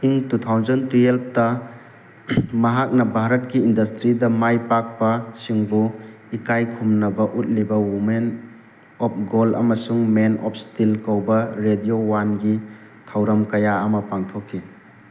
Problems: constant background noise